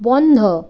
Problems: constant background noise